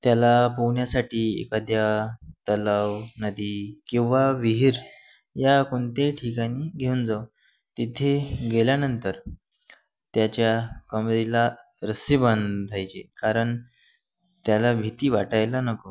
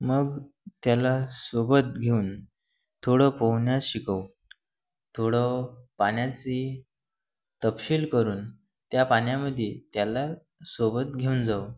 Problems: none marked